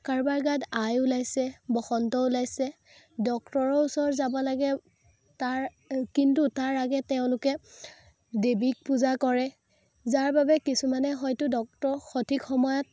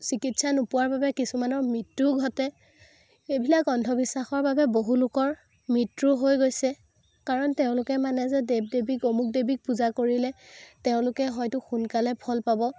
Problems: none marked